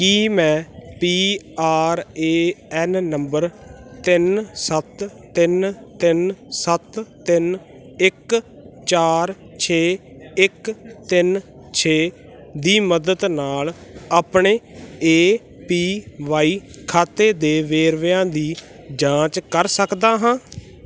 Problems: constant background noise